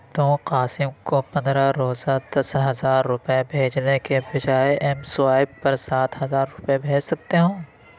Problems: background sounds at intervals